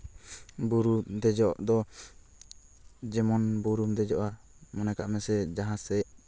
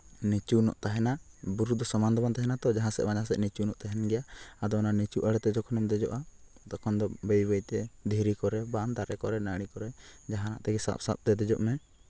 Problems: background sounds at intervals